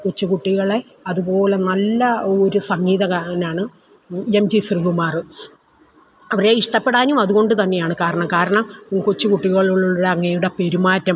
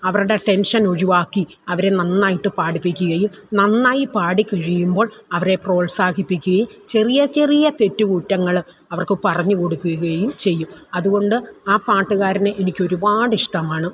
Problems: none marked